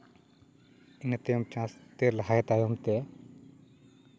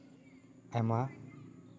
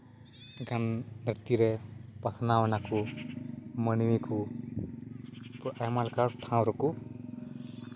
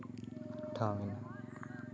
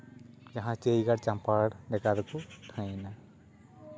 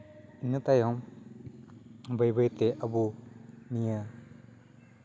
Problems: constant background noise, background conversations at intervals